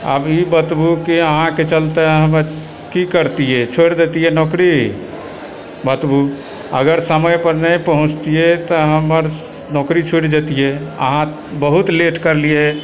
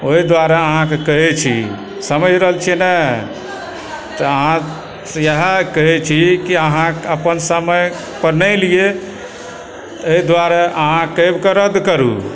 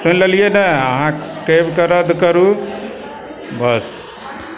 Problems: constant background noise, continuous background conversations